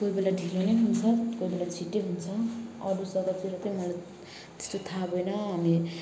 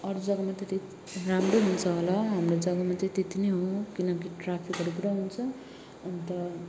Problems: constant background noise